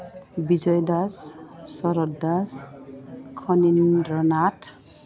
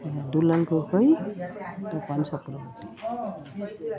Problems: none marked